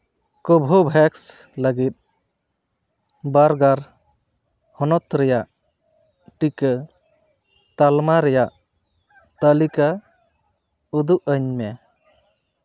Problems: none marked